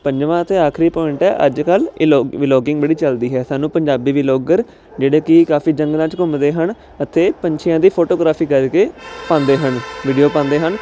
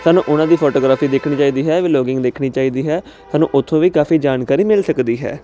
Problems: constant background noise